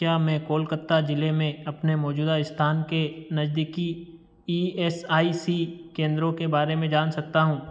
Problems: none marked